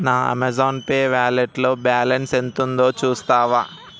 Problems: constant background noise